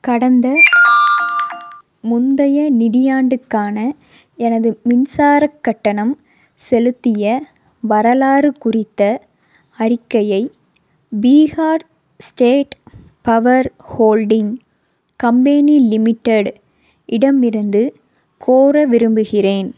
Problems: background sounds at intervals